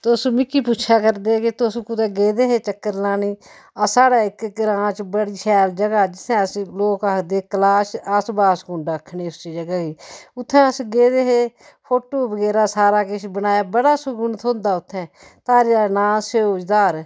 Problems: none marked